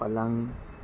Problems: background sounds at intervals